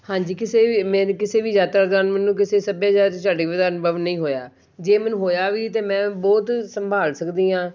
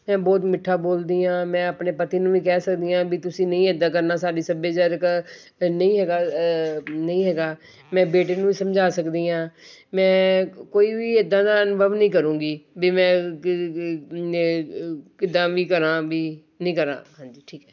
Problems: background sounds at intervals